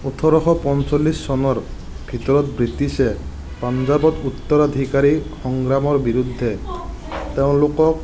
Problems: constant background noise, background conversations at intervals